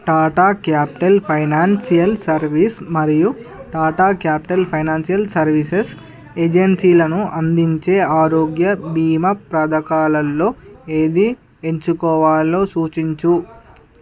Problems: background sounds at intervals, continuous background conversations